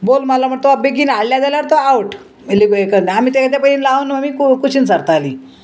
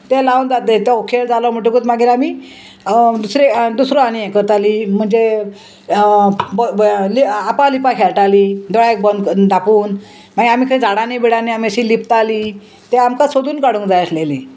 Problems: constant background noise